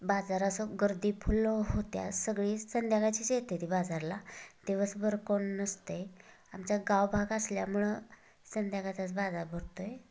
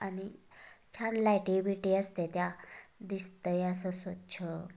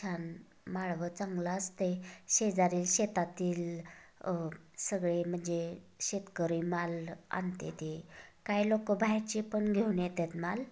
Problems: background sounds at intervals